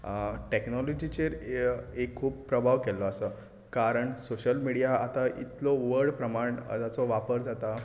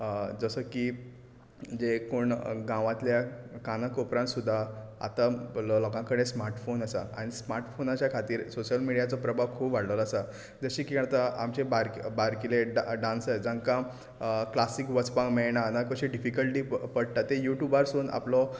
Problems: background sounds at intervals